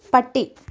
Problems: none marked